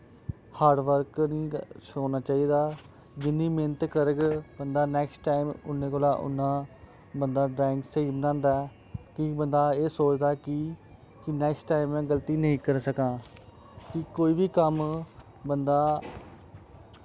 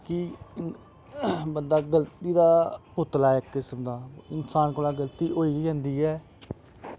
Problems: constant background noise